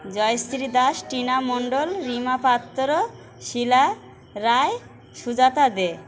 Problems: constant background noise, background conversations at intervals